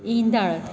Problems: constant background noise, echo